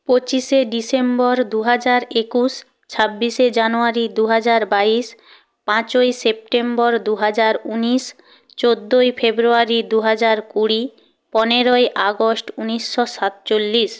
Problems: none marked